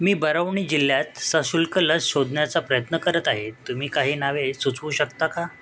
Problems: constant background noise, continuous background conversations